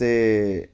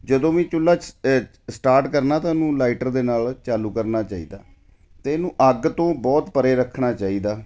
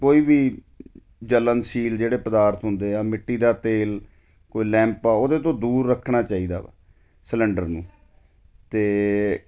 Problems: none marked